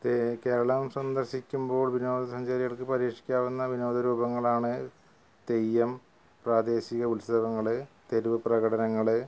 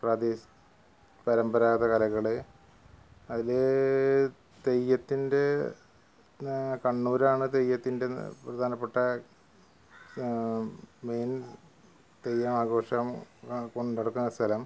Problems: background sounds at intervals, low volume